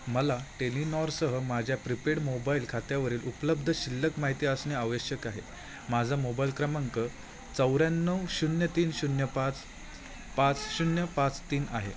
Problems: none marked